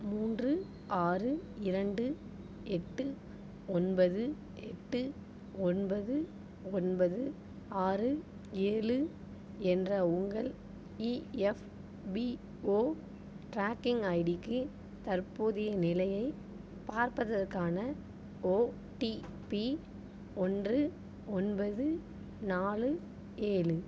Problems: none marked